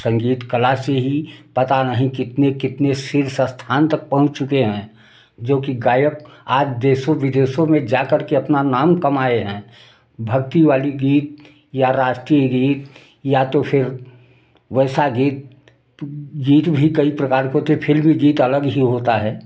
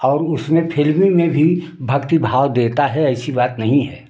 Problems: constant background noise